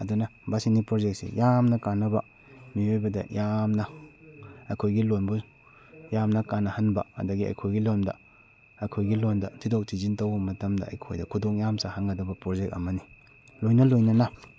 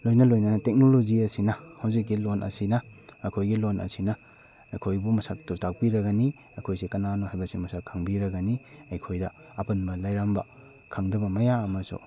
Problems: background conversations at intervals